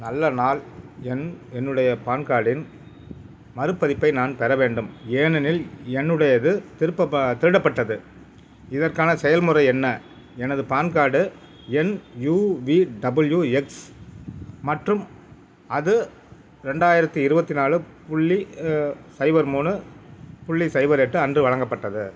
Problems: background sounds at intervals